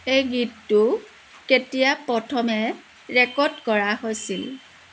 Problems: constant background noise